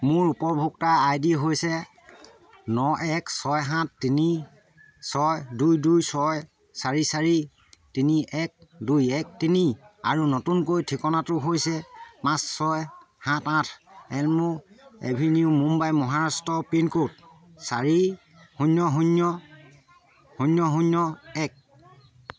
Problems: constant background noise, continuous background conversations